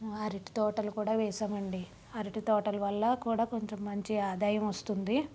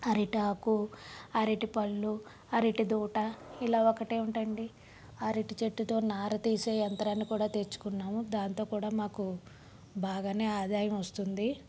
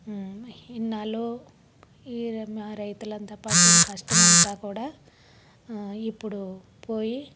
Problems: background sounds at intervals, low volume